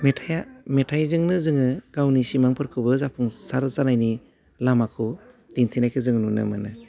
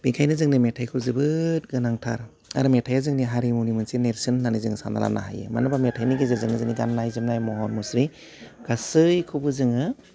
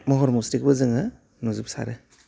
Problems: low volume